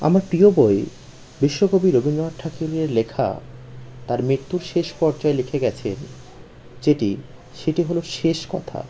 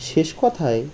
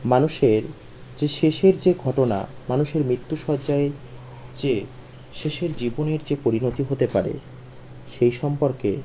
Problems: constant background noise